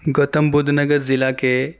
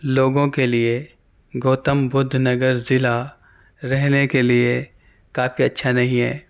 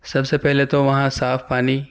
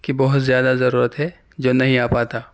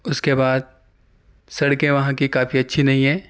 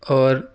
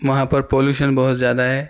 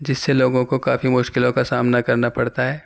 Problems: none marked